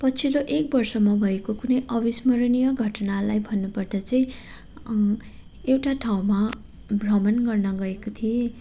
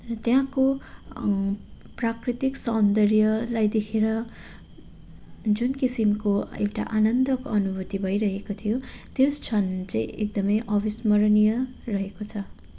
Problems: none marked